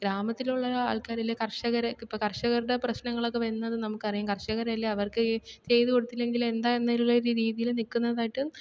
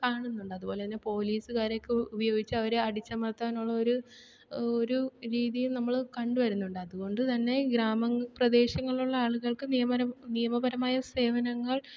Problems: none marked